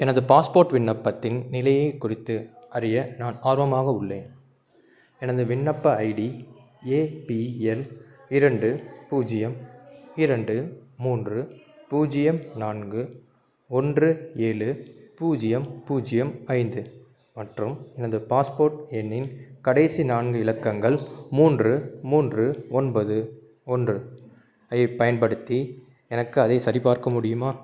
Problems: background conversations at intervals